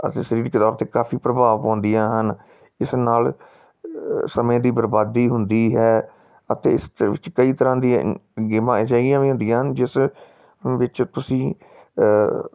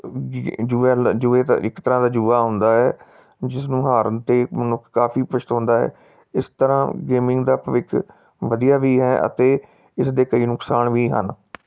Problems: background sounds at intervals